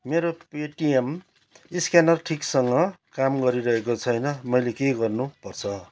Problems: background sounds at intervals